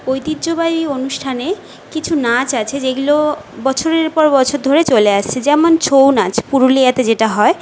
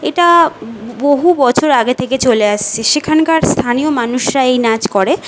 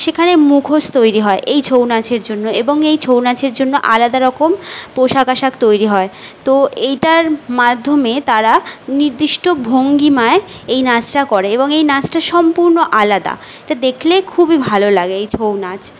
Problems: none marked